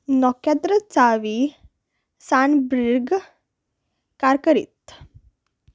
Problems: none marked